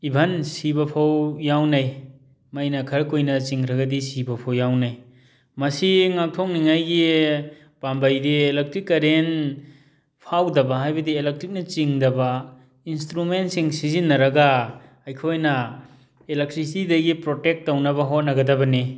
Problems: background sounds at intervals